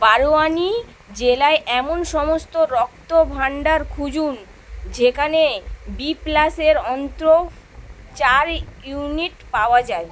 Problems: none marked